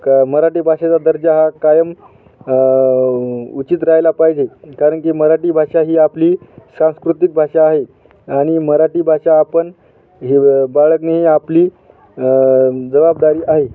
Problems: constant background noise